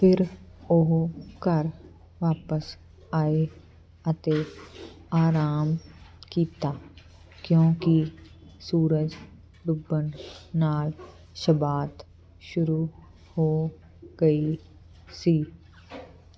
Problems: none marked